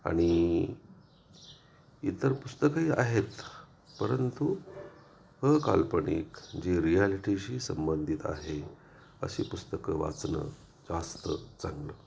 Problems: constant background noise, background conversations at intervals